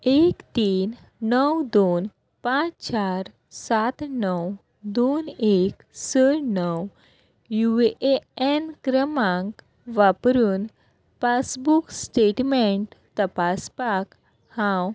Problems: none marked